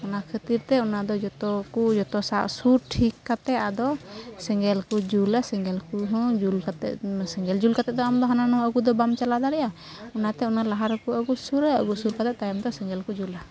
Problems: none marked